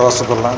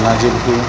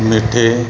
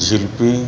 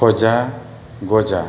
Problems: constant background noise